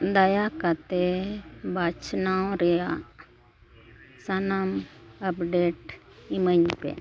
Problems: none marked